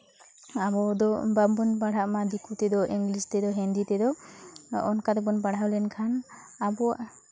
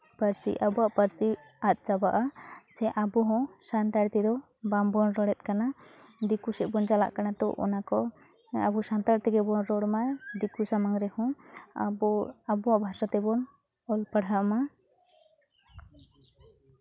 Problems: constant background noise, background conversations at intervals